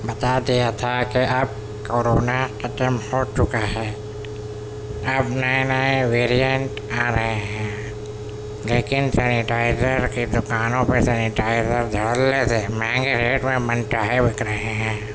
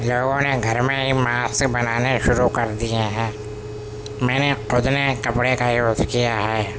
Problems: constant background noise